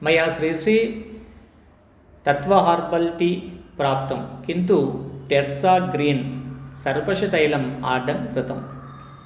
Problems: constant background noise